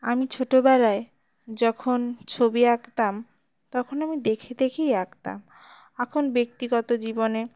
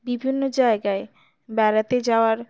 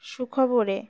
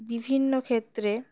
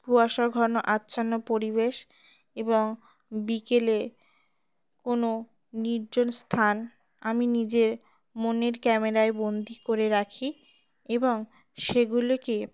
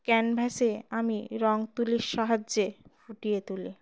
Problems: none marked